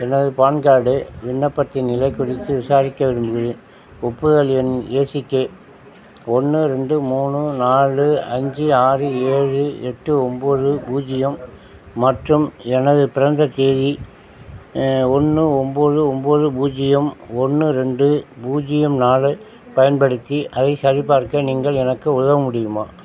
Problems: background conversations at intervals